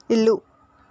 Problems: none marked